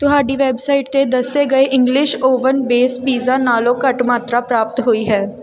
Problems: background sounds at intervals